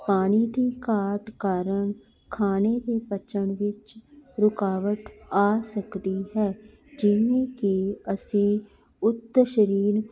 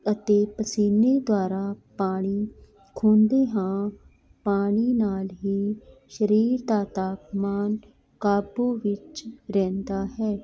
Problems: continuous background conversations